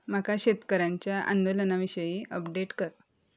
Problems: none marked